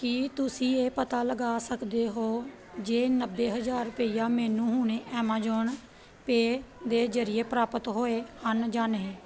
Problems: background conversations at intervals